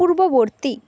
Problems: constant background noise